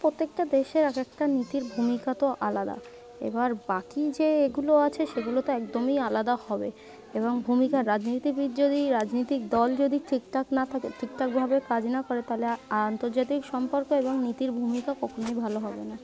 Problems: constant background noise, continuous background conversations